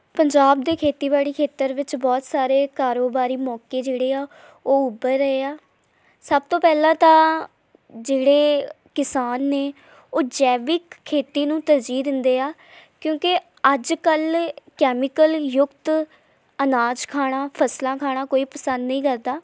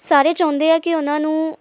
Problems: background sounds at intervals